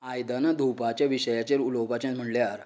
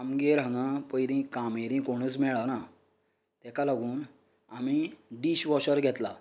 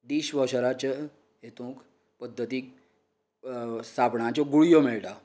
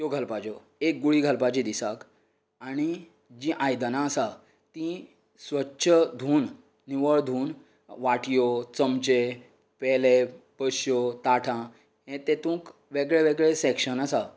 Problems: none marked